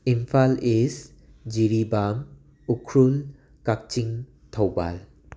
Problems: none marked